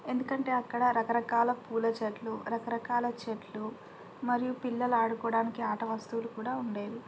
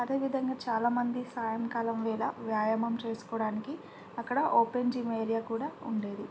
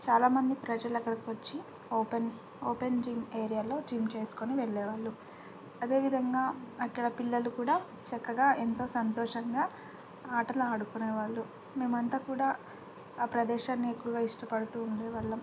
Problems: low volume